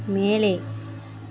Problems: constant background noise